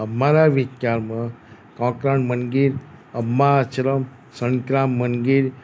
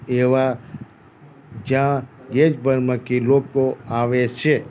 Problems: none marked